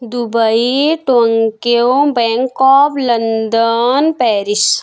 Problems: constant background noise